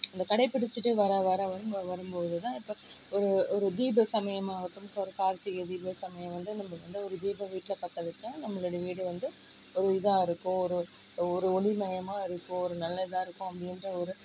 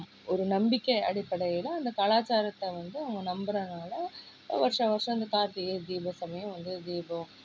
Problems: low volume